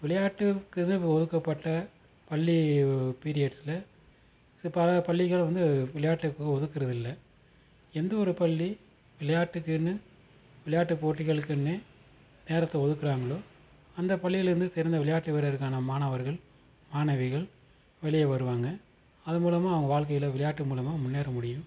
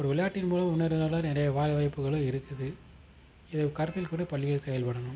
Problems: constant background noise